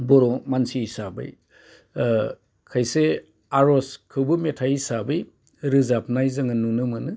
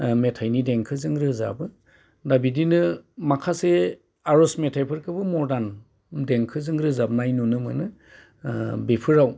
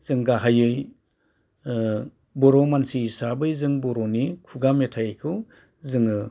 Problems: constant background noise